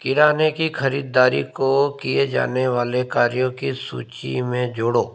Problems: none marked